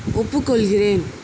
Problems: constant background noise